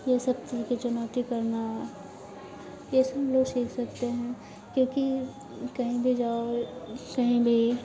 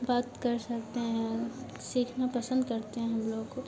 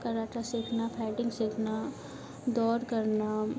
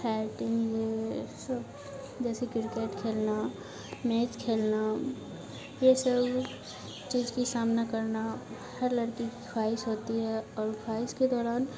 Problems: none marked